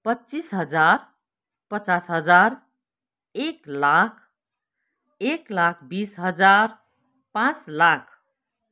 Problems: none marked